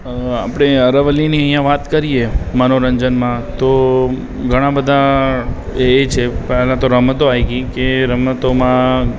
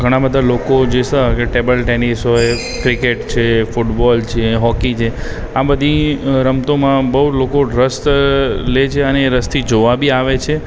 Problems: background sounds at intervals